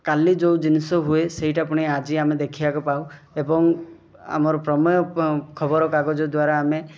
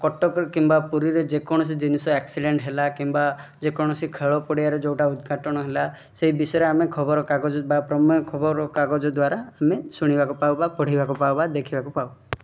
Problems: none marked